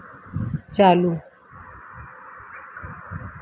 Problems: low volume